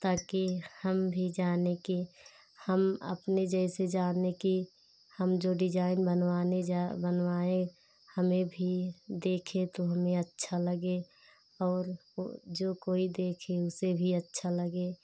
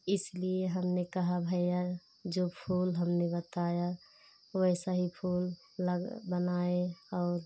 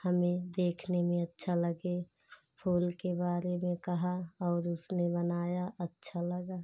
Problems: constant background noise